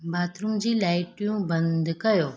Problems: none marked